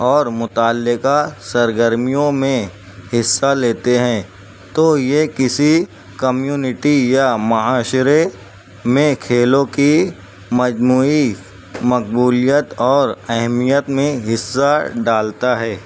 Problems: constant background noise